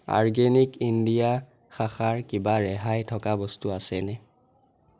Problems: none marked